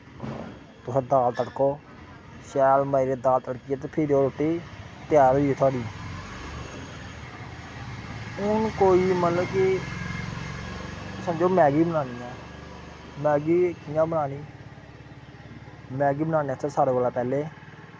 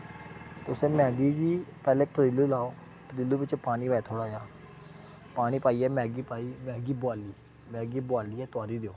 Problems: background sounds at intervals